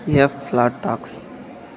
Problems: constant background noise